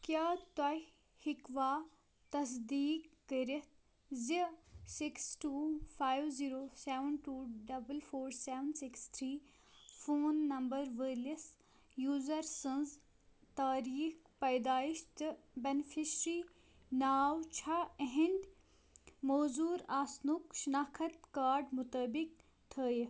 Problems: background sounds at intervals